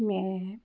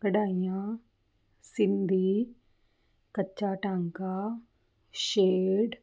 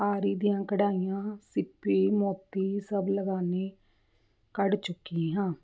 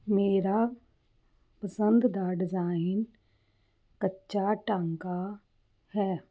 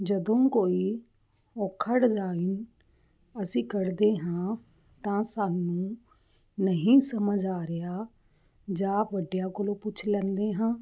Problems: none marked